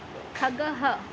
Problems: constant background noise